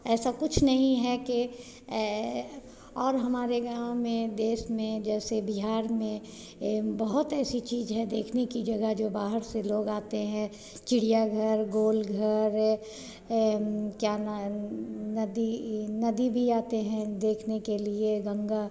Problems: none marked